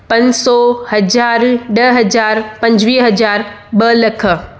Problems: background sounds at intervals, echo